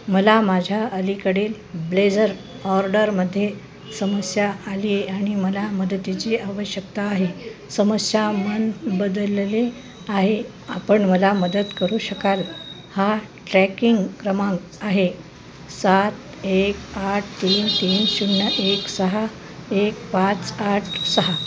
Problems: constant background noise